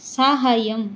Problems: none marked